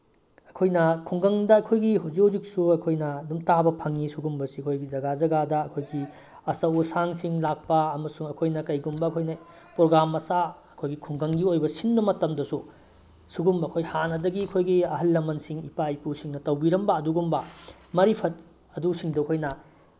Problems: background sounds at intervals